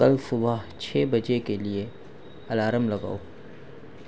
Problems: none marked